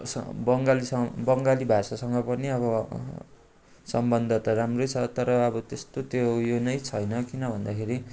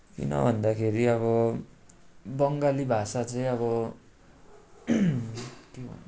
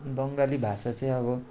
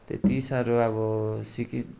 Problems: constant background noise